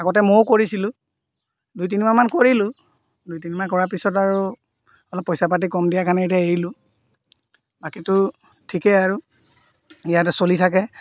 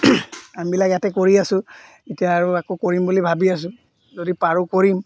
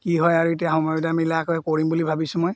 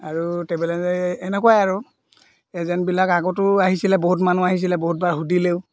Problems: none marked